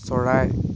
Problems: constant background noise